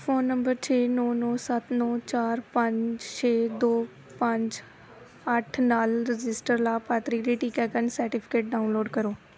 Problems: background conversations at intervals